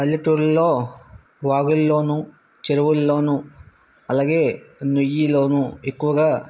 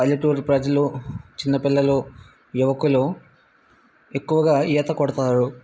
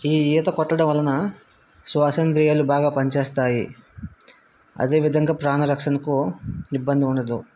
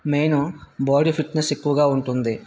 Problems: none marked